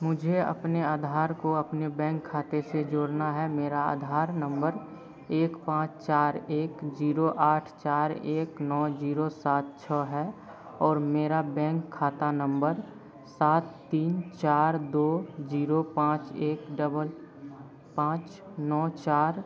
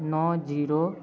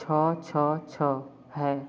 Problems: none marked